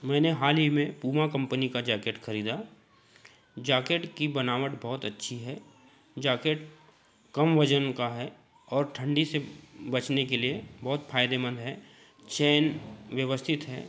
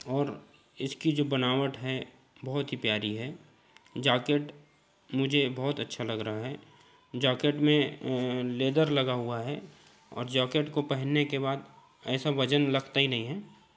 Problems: constant background noise